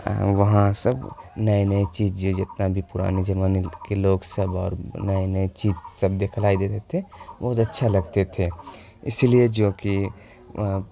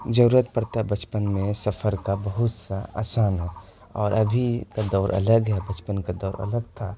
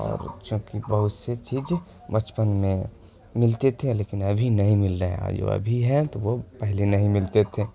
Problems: constant background noise